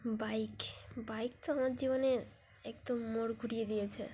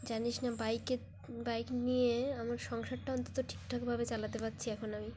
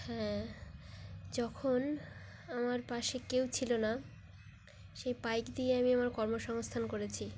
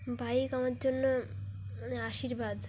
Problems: background sounds at intervals